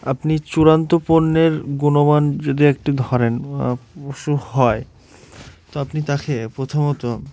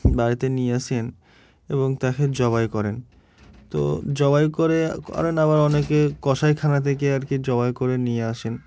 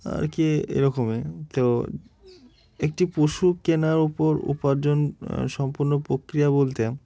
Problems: none marked